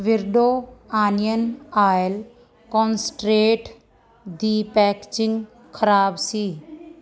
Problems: none marked